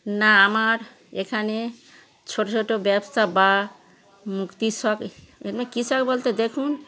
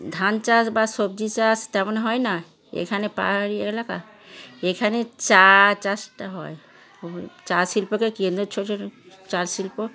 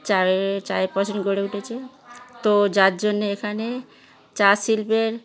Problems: background sounds at intervals, continuous background conversations